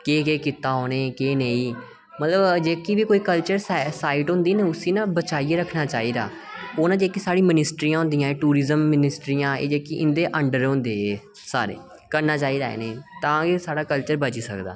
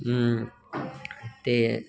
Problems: none marked